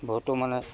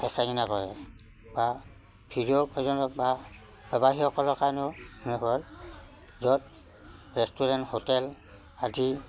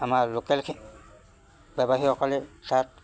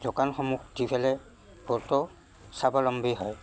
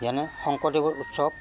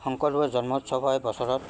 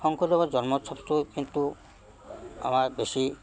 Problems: constant background noise